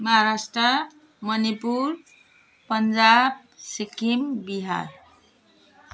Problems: background sounds at intervals